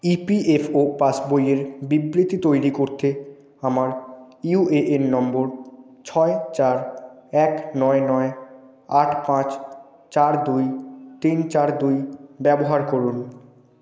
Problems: none marked